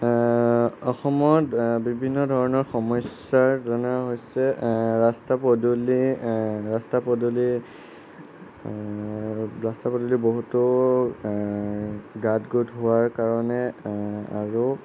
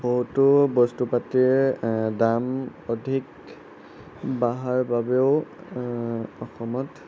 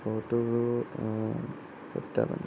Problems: background sounds at intervals